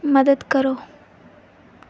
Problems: none marked